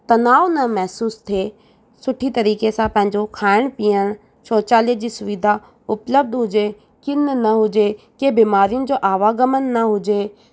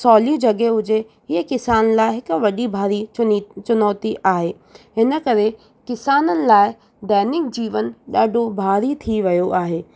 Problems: none marked